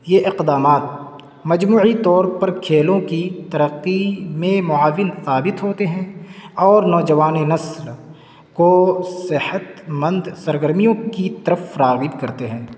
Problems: constant background noise